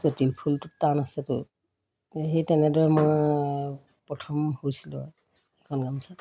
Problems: none marked